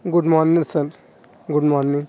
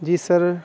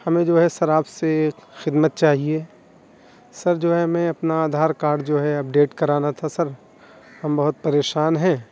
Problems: constant background noise